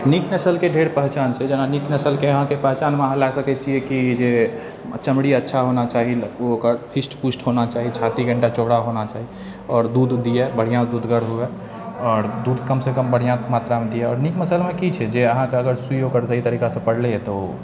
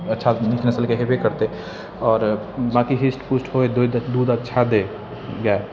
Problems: none marked